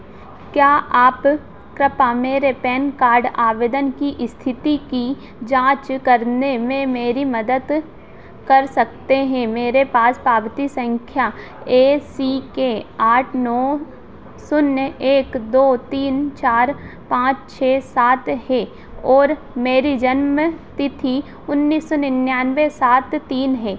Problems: constant background noise